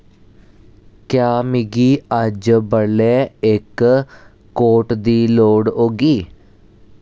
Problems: none marked